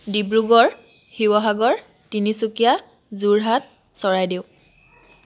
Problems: constant background noise